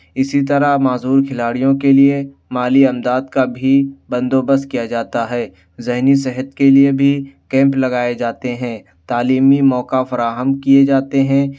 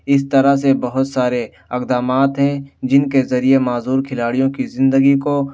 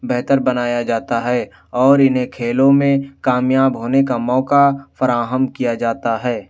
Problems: none marked